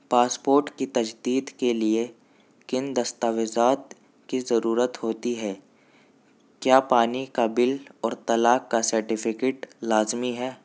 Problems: none marked